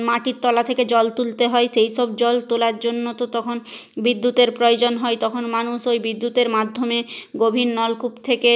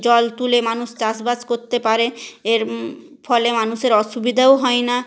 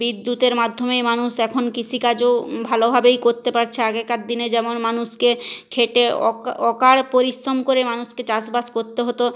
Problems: none marked